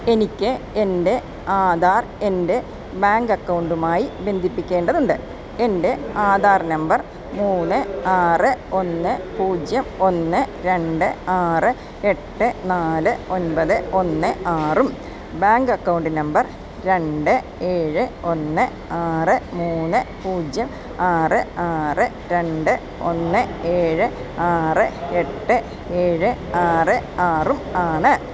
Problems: none marked